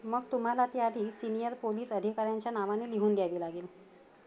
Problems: none marked